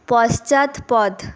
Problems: constant background noise